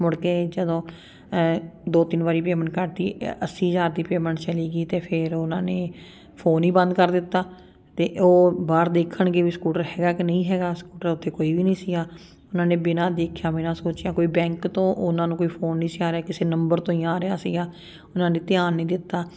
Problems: none marked